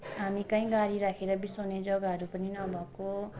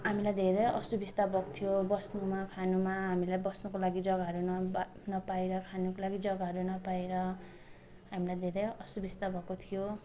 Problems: continuous background conversations